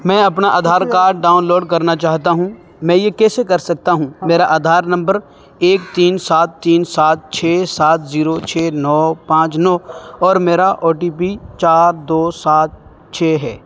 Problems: constant background noise